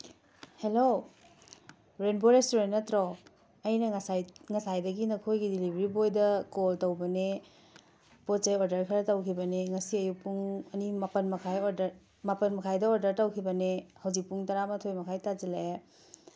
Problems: background sounds at intervals, background conversations at intervals